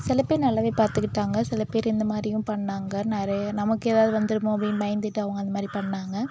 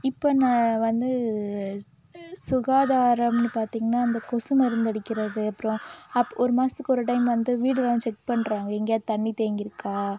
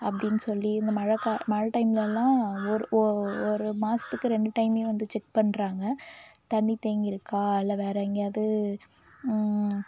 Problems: background sounds at intervals